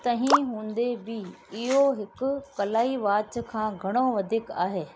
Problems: constant background noise